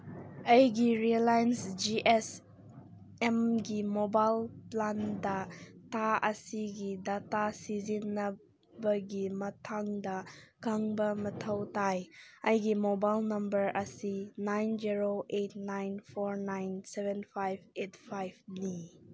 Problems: none marked